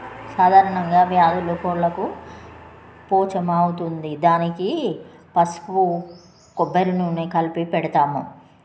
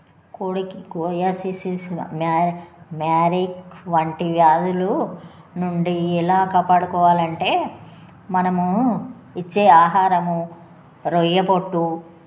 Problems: constant background noise